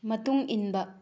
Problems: low volume